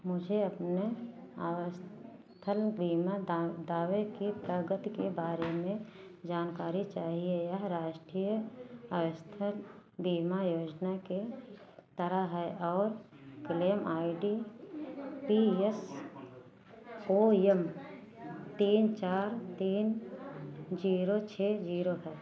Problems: background sounds at intervals